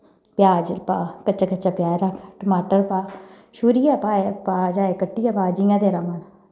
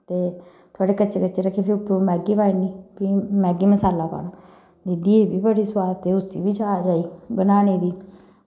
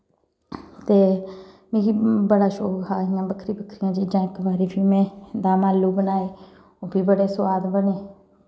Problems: background sounds at intervals, echo